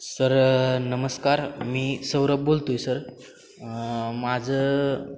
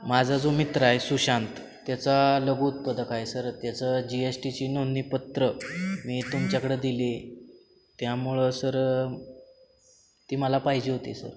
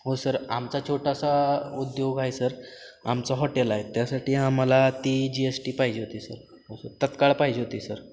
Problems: background sounds at intervals